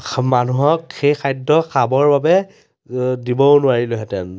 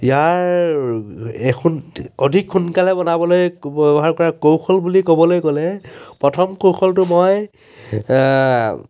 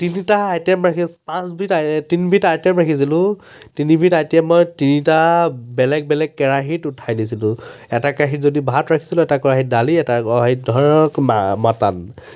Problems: none marked